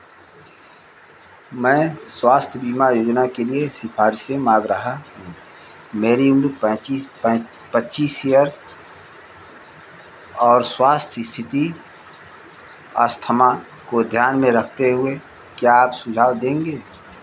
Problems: constant background noise